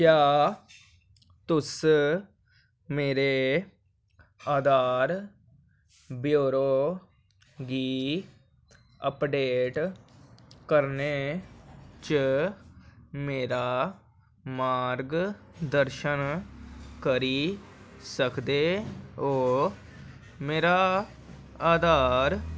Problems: none marked